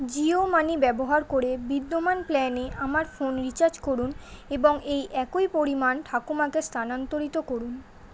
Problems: constant background noise